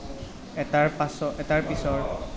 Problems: background conversations at intervals